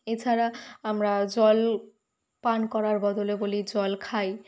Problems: none marked